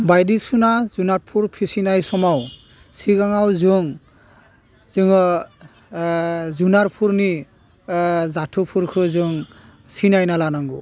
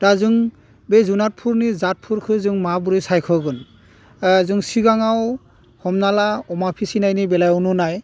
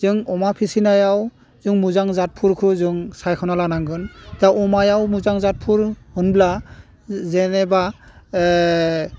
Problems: none marked